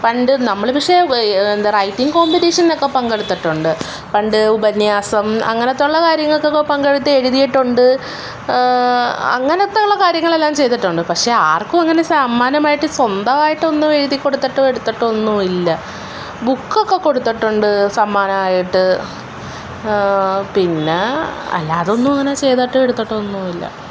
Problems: background sounds at intervals